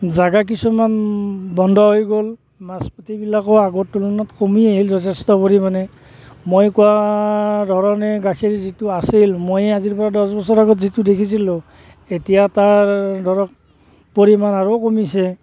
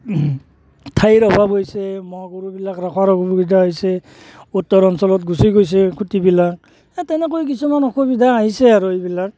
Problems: background sounds at intervals